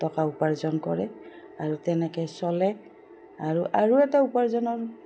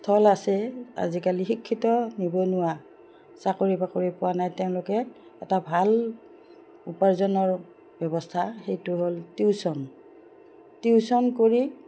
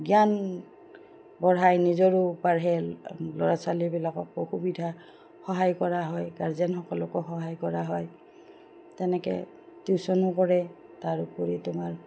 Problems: none marked